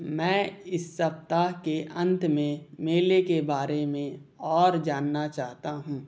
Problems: none marked